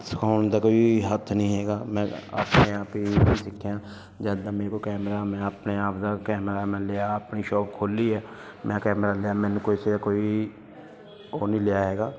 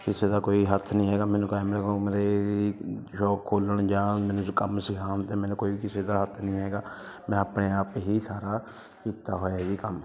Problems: continuous background conversations